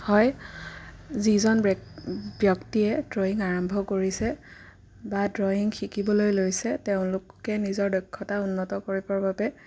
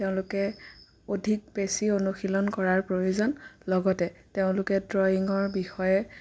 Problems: none marked